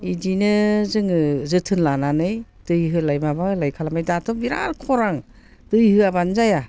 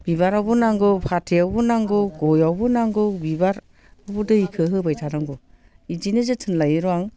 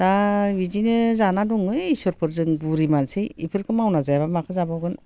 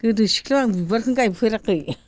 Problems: constant background noise